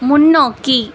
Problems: constant background noise